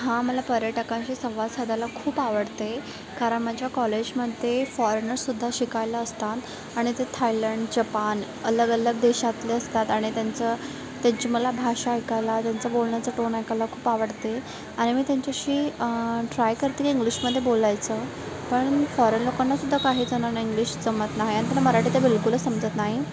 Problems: constant background noise, background conversations at intervals